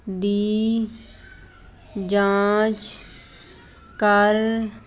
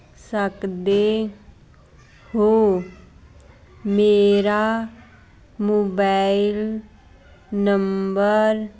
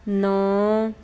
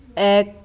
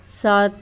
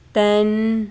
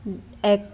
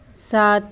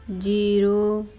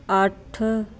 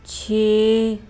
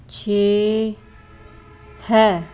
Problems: constant background noise